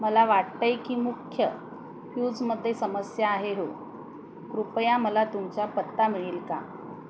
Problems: constant background noise